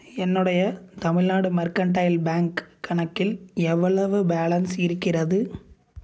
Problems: none marked